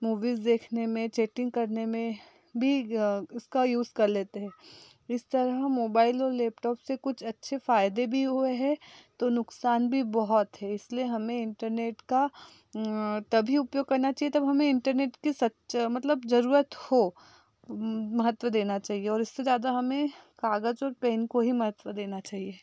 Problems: background sounds at intervals